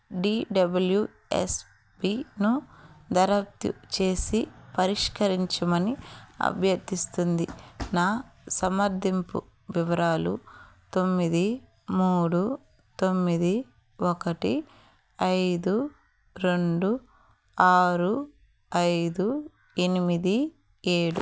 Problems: background sounds at intervals